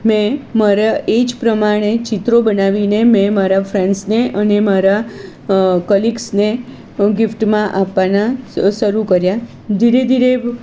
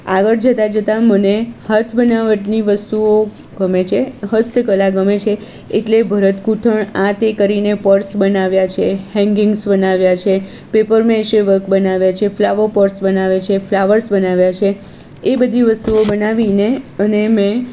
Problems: none marked